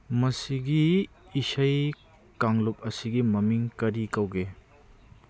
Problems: none marked